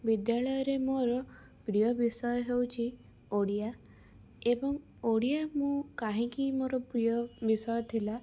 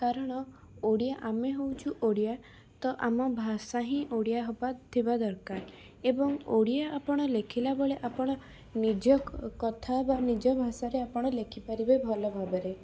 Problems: background sounds at intervals